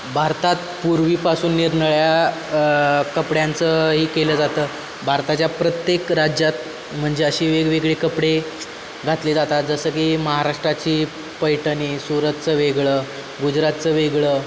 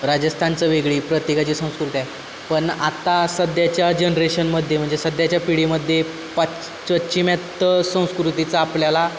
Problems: constant background noise